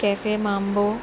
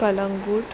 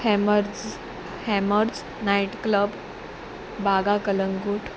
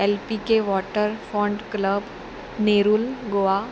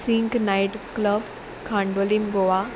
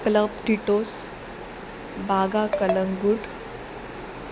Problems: constant background noise